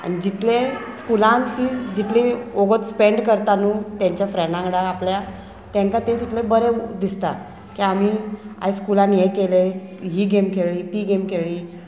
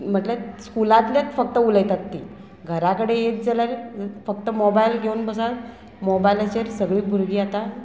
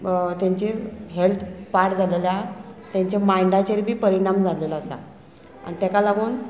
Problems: constant background noise